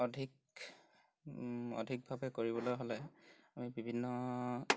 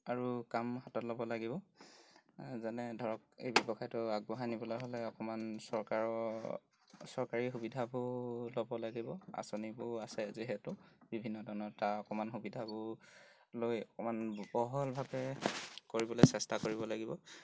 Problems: background sounds at intervals